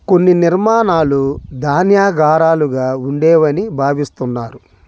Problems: none marked